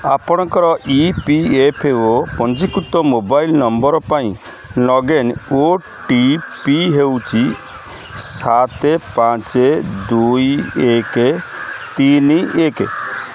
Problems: constant background noise